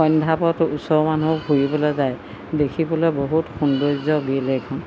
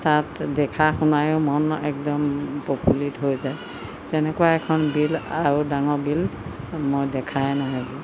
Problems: constant background noise